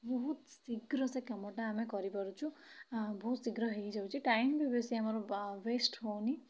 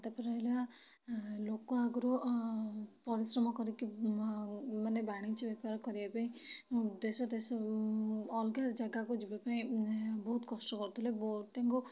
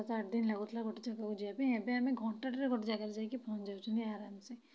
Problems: low volume